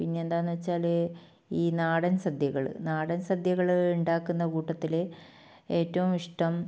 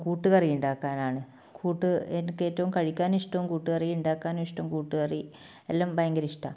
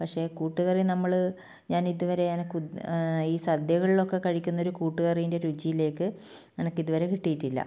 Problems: low volume